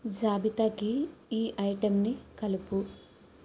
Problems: low volume